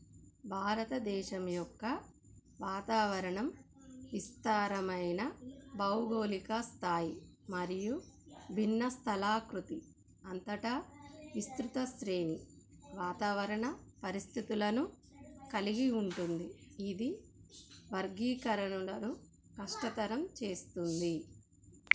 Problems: none marked